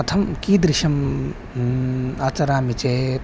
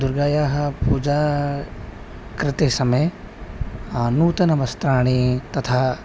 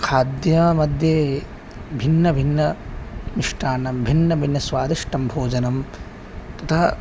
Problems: background sounds at intervals